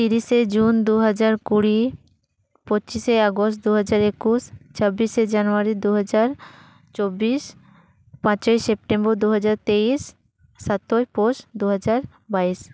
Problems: none marked